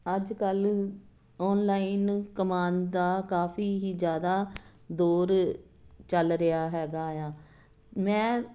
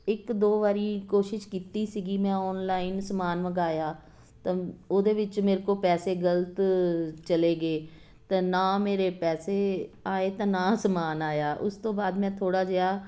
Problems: none marked